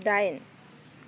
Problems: constant background noise